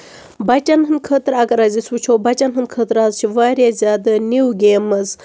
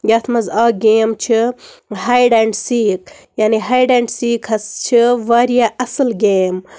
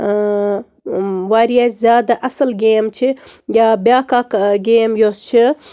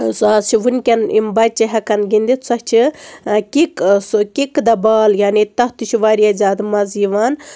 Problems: constant background noise